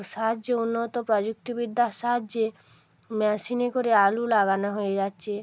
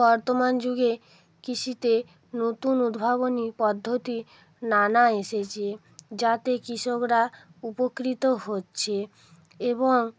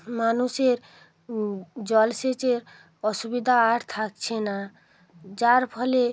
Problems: constant background noise